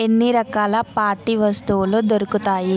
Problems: constant background noise, background conversations at intervals